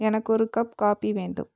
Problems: none marked